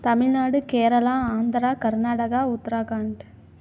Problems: none marked